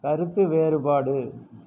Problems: low volume